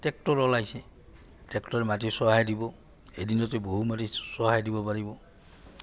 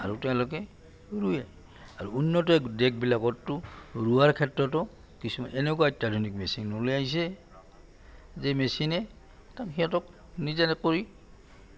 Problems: low volume